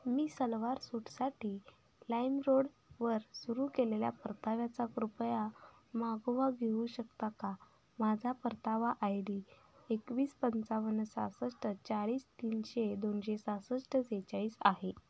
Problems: constant background noise, low volume